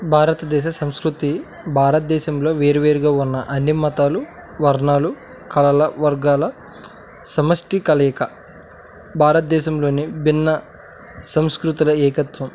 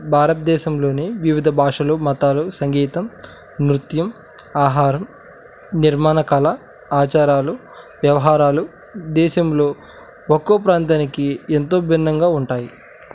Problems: none marked